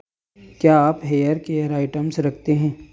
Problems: constant background noise